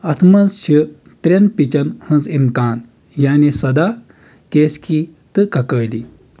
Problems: constant background noise